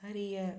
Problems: low volume